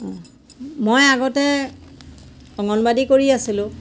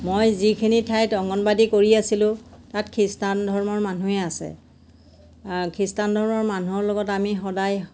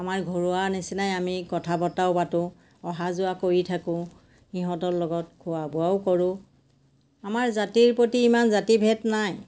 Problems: none marked